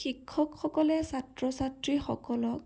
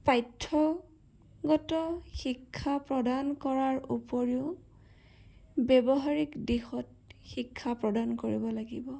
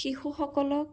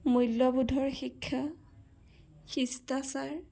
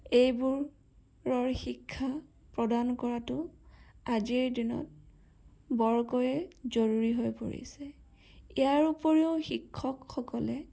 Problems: none marked